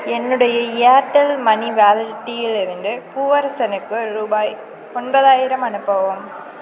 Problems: constant background noise